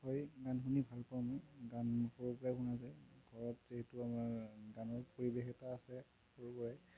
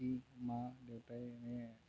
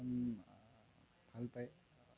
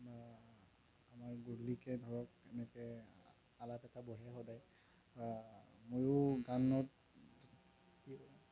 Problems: background sounds at intervals, low volume